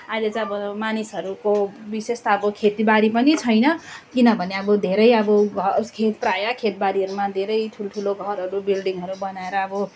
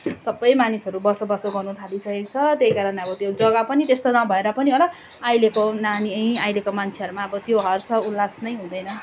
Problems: constant background noise